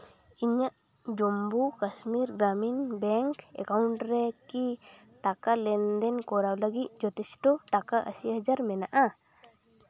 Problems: continuous background conversations